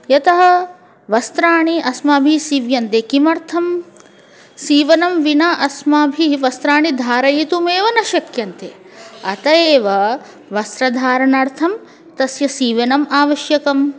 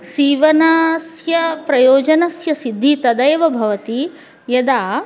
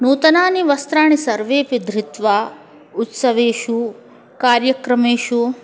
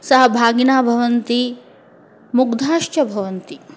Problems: continuous background conversations